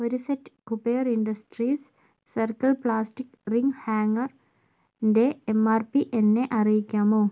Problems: low volume